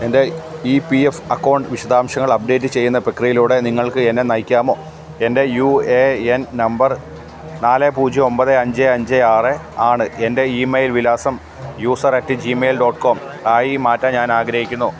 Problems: constant background noise